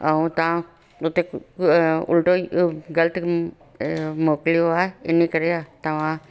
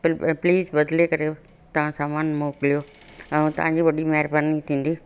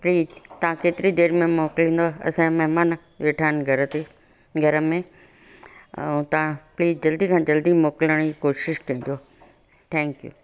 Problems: constant background noise